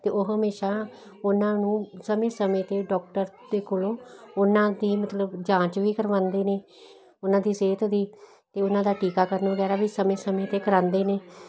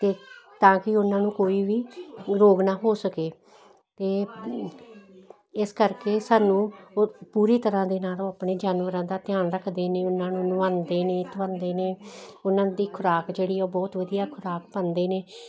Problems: none marked